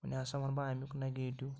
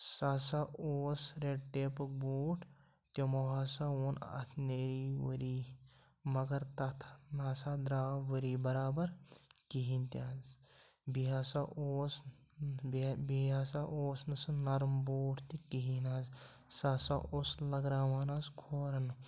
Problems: low volume